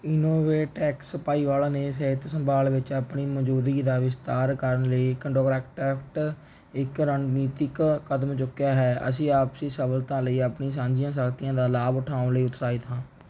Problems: background sounds at intervals